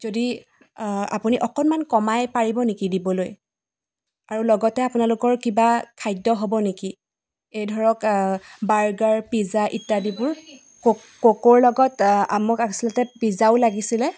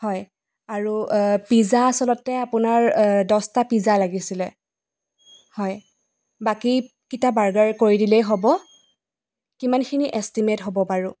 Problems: background sounds at intervals